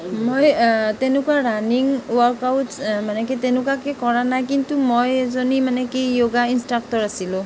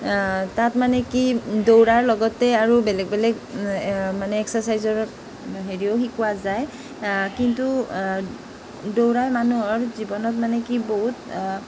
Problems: none marked